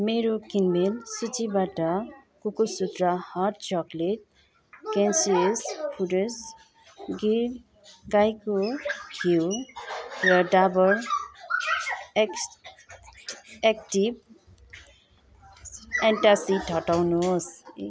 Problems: constant background noise